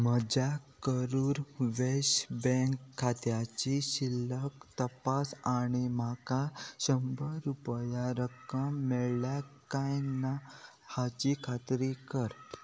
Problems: constant background noise